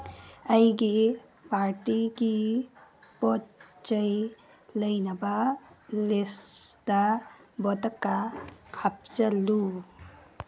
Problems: background sounds at intervals